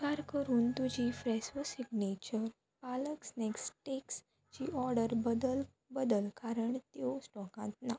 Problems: low volume